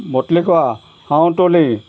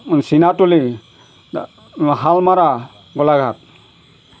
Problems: none marked